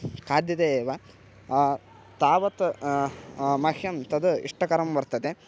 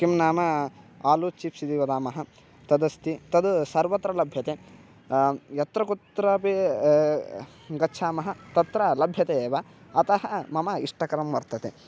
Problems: none marked